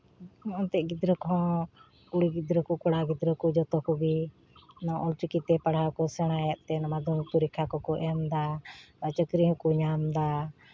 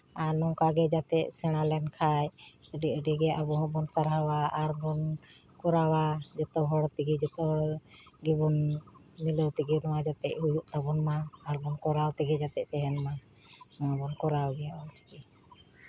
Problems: none marked